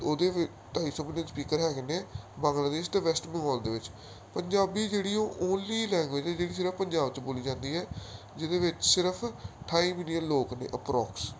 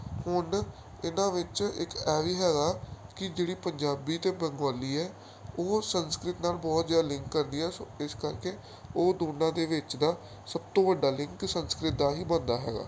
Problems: none marked